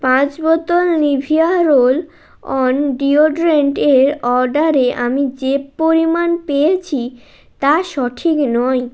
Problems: constant background noise